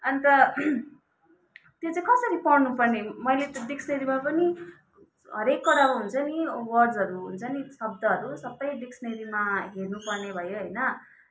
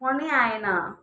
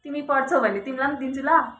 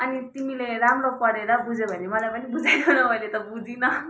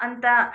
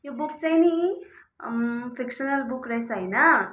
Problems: background sounds at intervals, continuous background conversations